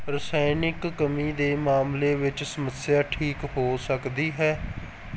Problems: none marked